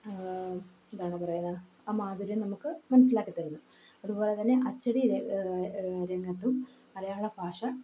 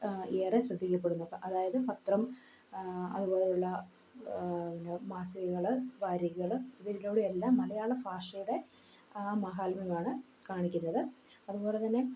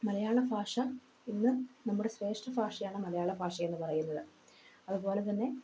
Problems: echo, low volume